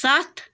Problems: none marked